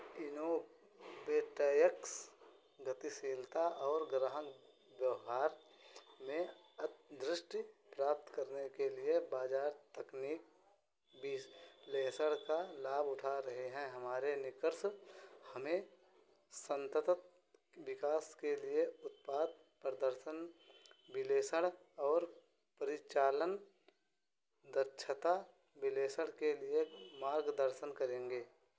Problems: constant background noise